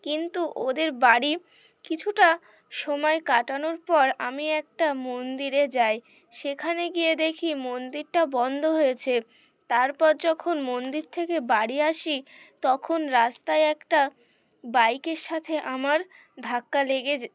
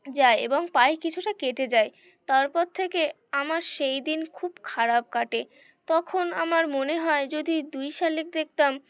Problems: none marked